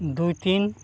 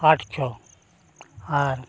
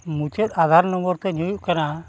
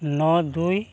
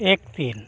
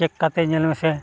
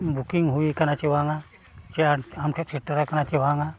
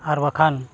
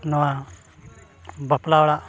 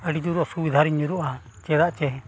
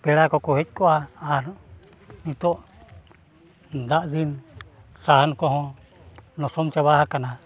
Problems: none marked